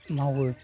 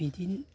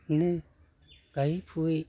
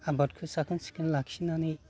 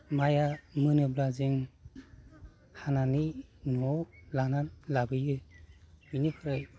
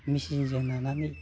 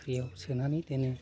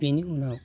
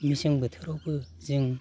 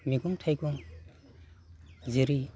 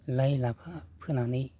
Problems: constant background noise